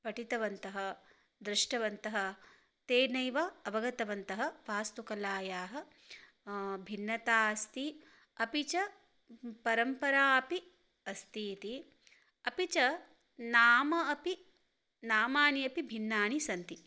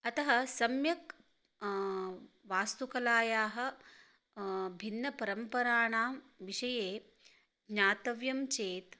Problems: none marked